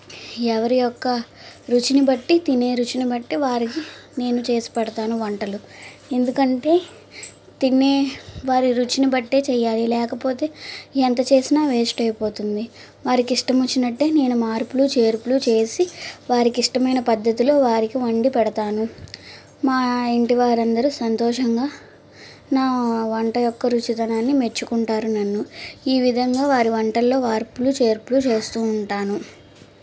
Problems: constant background noise